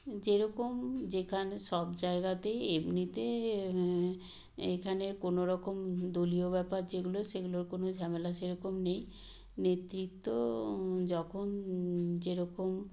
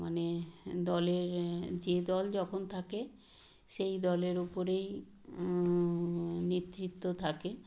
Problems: background sounds at intervals